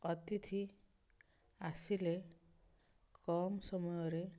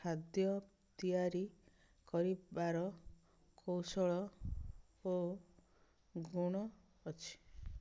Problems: none marked